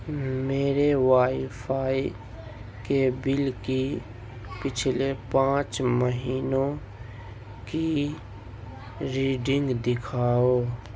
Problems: constant background noise